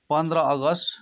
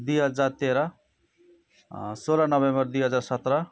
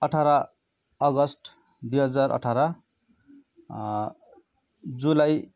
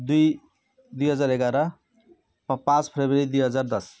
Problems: background sounds at intervals